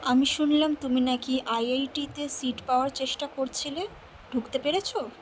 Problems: constant background noise